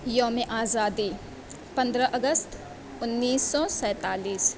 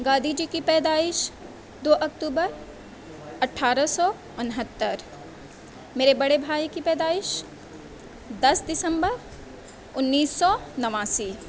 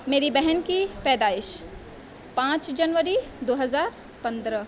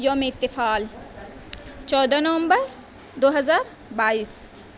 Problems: none marked